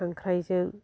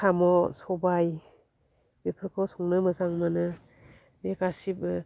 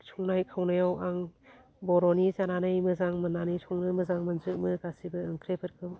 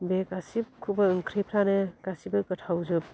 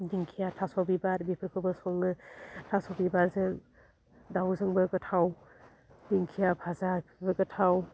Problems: none marked